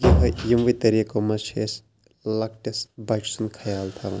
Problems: background sounds at intervals